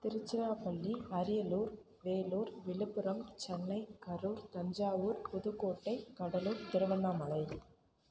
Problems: constant background noise